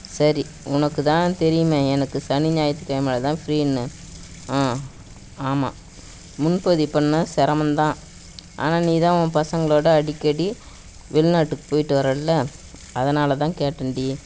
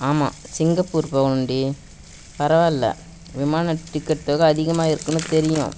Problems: background sounds at intervals